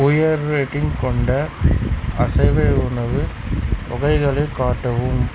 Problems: constant background noise